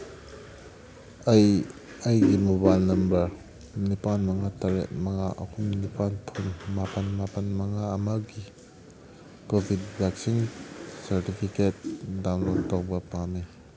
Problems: background sounds at intervals